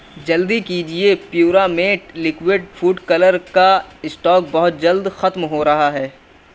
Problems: none marked